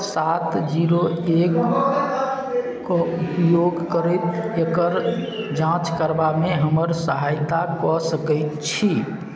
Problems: background sounds at intervals